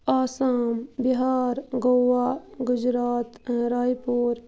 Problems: constant background noise